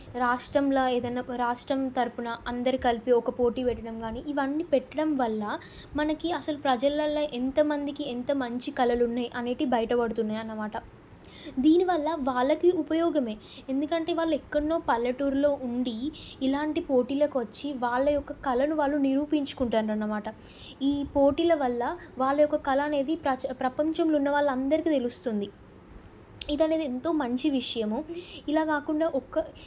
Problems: none marked